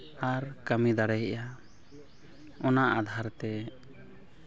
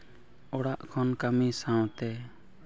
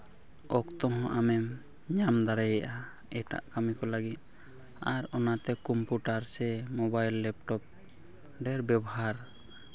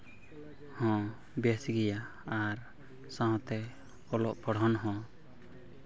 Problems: constant background noise